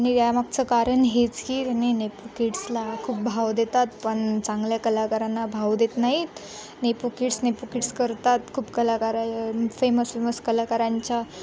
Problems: none marked